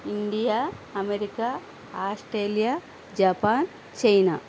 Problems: constant background noise